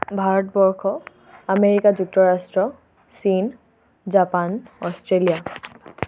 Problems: none marked